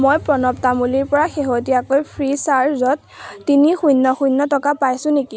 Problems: none marked